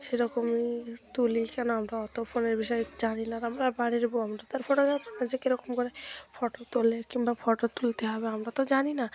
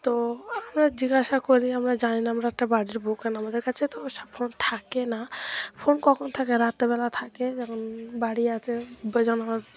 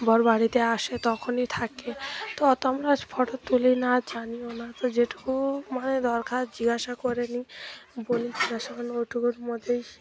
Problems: none marked